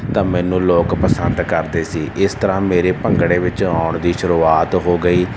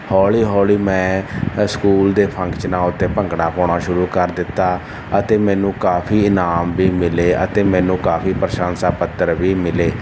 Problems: none marked